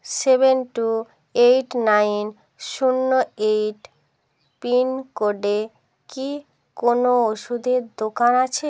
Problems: background sounds at intervals